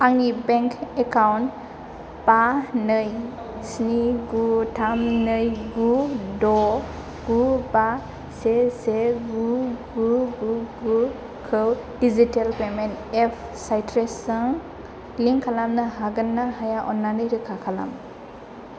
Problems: constant background noise